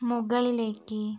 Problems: background sounds at intervals, low volume